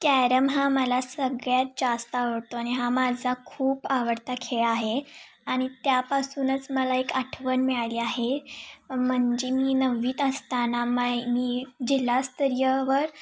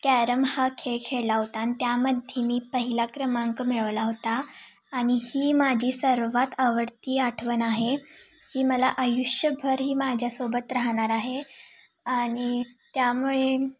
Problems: constant background noise